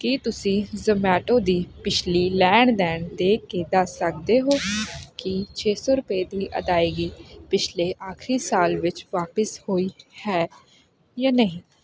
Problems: constant background noise